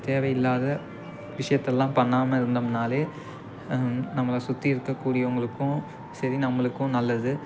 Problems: constant background noise